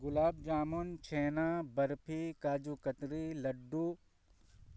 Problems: none marked